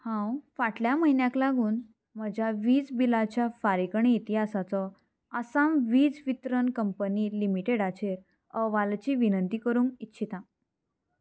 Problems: constant background noise